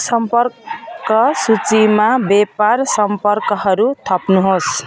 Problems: constant background noise